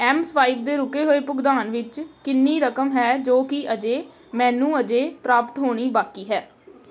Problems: constant background noise